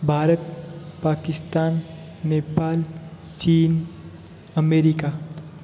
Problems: constant background noise